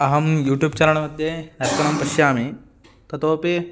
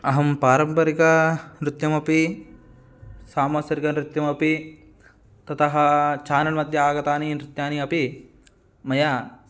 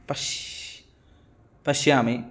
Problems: background sounds at intervals